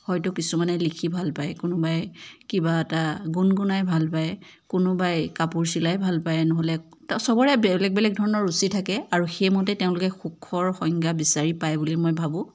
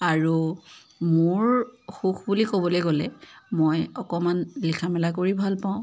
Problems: none marked